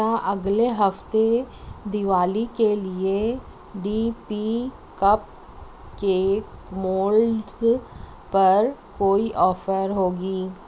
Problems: constant background noise